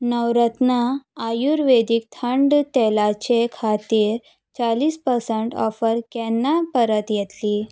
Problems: none marked